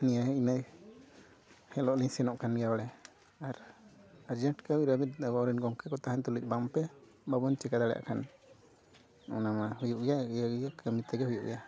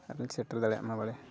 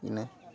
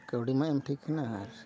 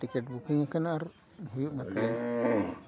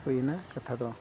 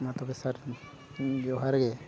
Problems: background sounds at intervals, background conversations at intervals